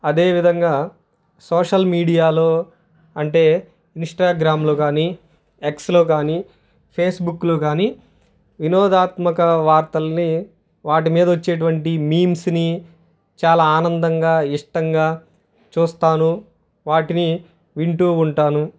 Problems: none marked